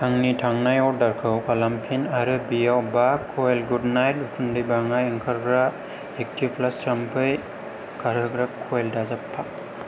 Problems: low volume